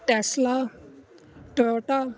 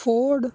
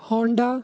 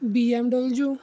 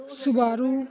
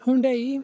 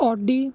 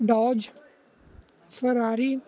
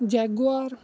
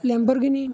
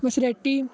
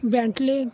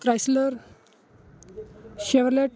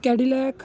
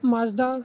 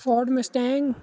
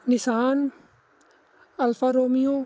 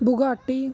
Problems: constant background noise